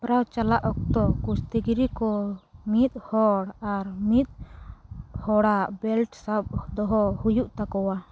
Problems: background sounds at intervals